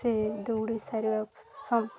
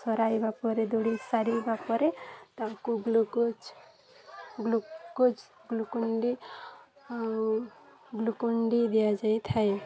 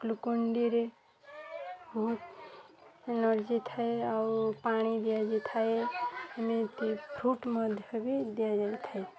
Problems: constant background noise, continuous background conversations